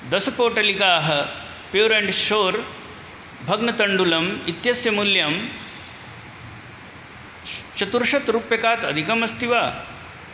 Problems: none marked